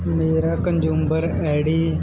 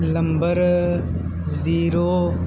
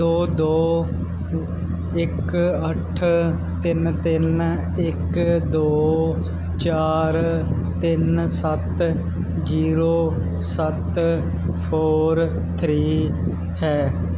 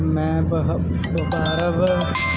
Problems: constant background noise, background conversations at intervals